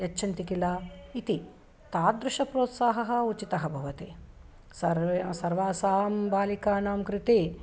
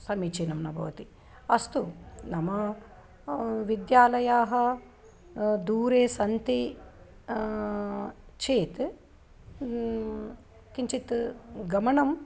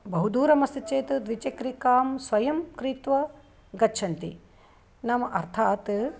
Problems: none marked